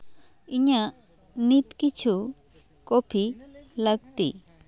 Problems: continuous background conversations